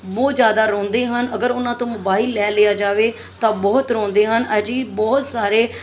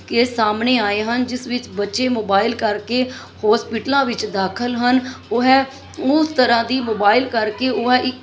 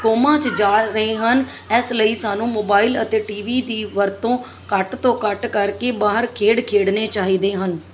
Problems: background sounds at intervals, background conversations at intervals